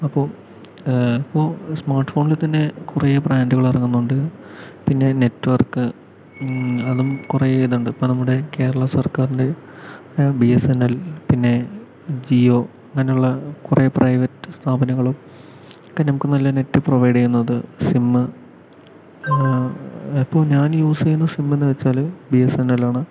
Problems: constant background noise